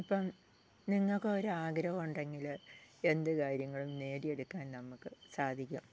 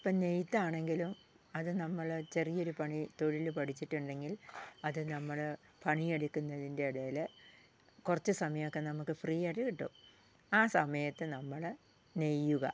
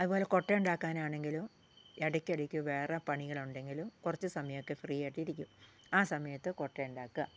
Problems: low volume